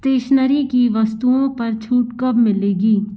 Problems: constant background noise